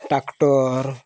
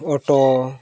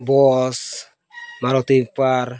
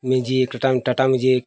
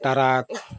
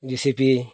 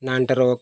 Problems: background sounds at intervals